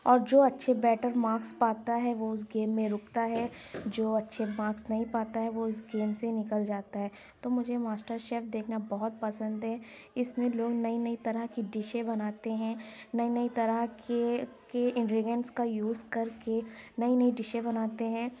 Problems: none marked